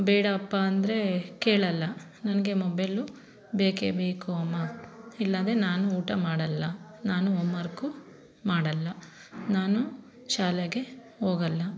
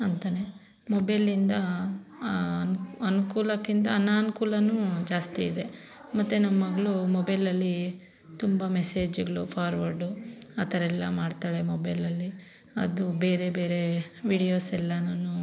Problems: none marked